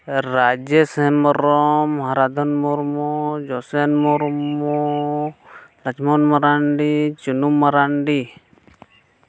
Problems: none marked